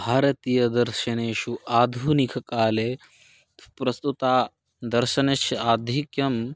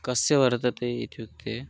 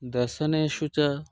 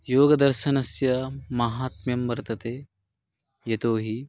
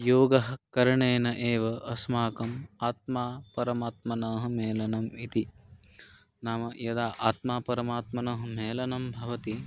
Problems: none marked